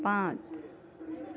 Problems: background sounds at intervals